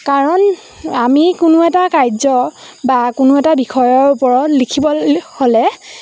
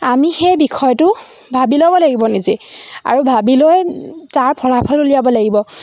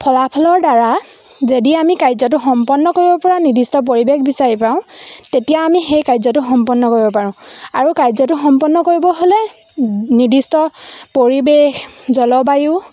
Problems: constant background noise, background conversations at intervals